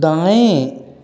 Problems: none marked